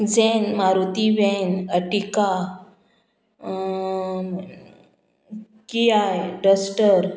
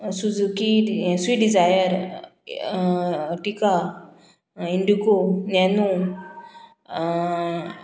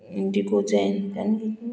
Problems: background sounds at intervals